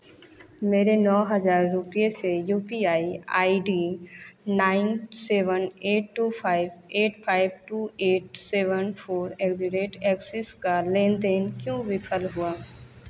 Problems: none marked